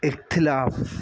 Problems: constant background noise